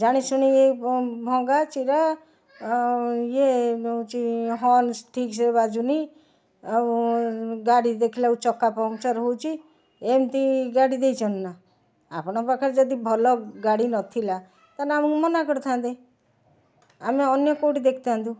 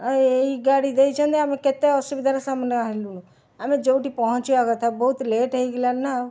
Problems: constant background noise